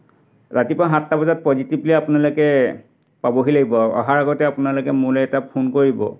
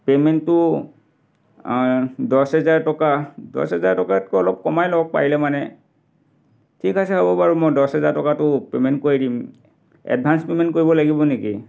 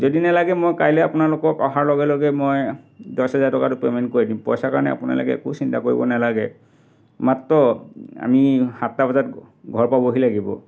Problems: background sounds at intervals